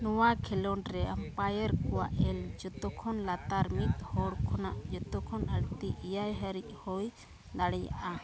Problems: constant background noise, background conversations at intervals